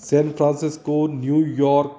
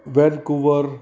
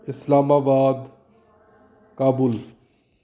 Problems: background conversations at intervals